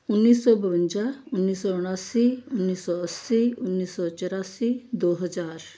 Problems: none marked